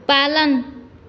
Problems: echo